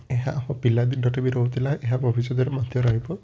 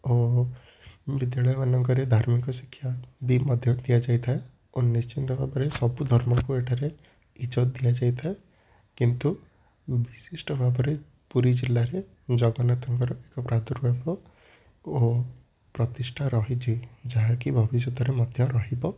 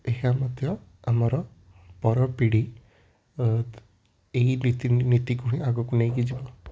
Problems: none marked